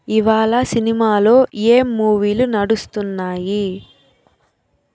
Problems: none marked